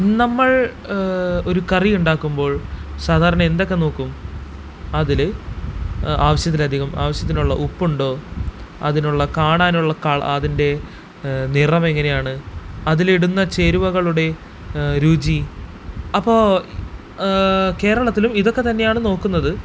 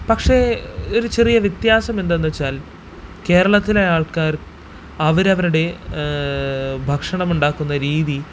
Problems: constant background noise